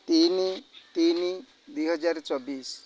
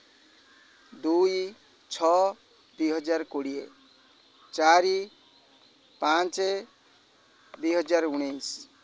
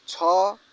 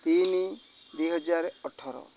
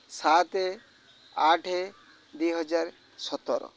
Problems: constant background noise